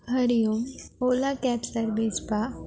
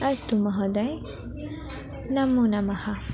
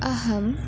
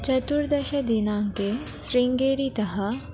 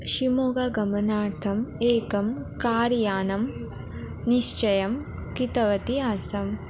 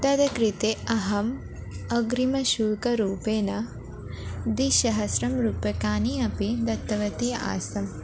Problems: background sounds at intervals